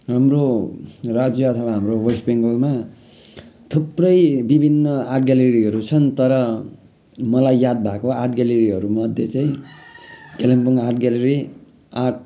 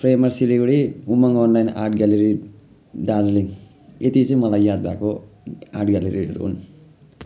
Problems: constant background noise